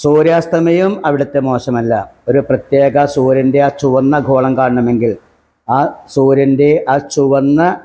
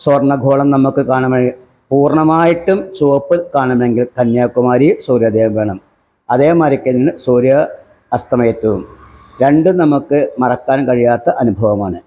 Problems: none marked